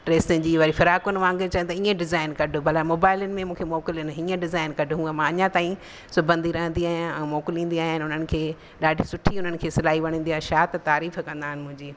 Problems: constant background noise